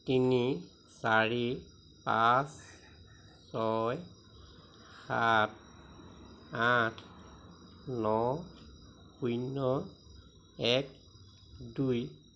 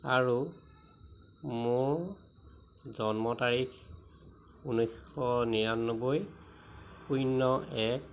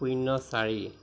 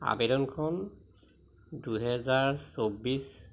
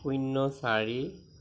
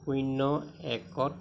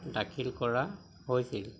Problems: constant background noise